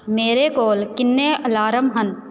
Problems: background sounds at intervals